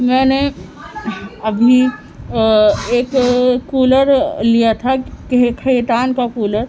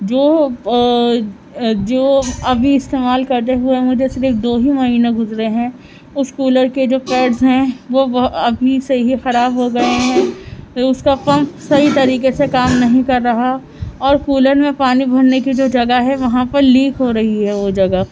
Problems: constant background noise